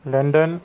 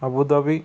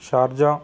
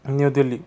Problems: background sounds at intervals